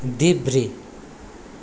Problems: none marked